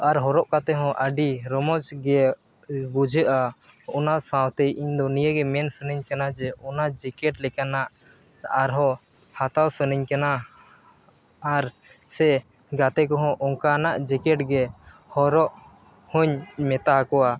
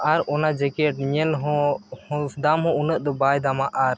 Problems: none marked